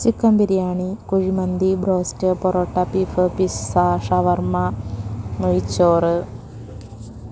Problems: constant background noise